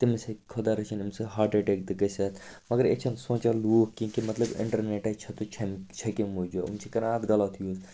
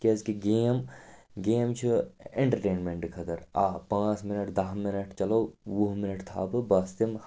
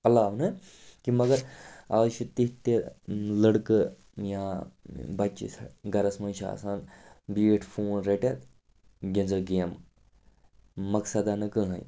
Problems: constant background noise